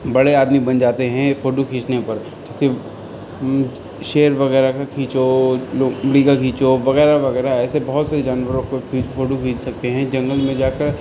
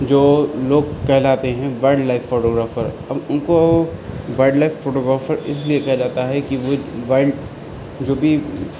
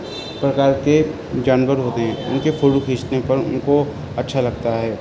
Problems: constant background noise